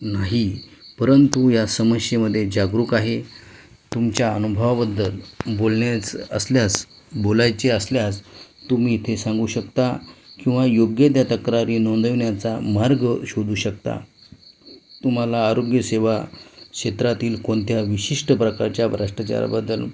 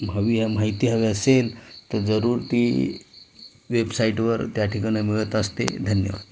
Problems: constant background noise